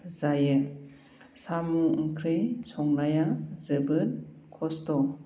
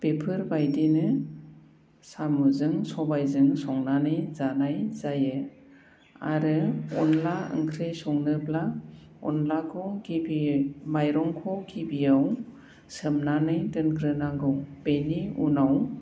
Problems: constant background noise